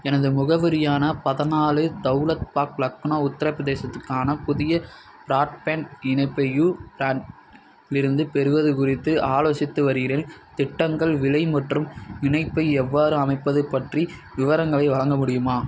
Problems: none marked